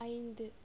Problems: none marked